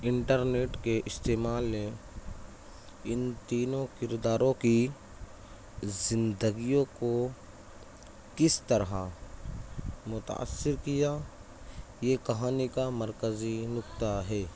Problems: constant background noise, background conversations at intervals